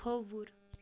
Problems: low volume